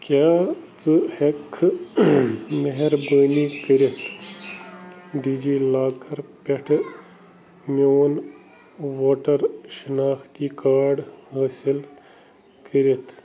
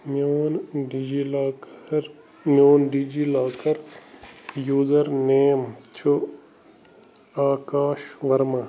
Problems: constant background noise